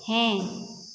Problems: echo